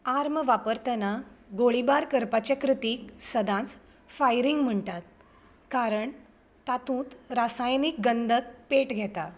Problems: background sounds at intervals